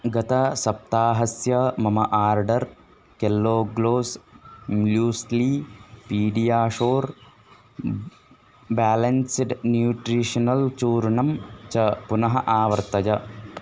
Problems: constant background noise